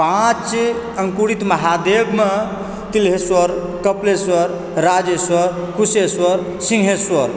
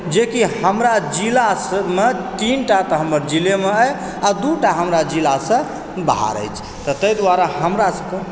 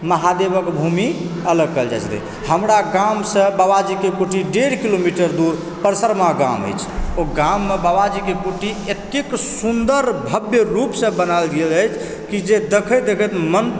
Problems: background sounds at intervals, background conversations at intervals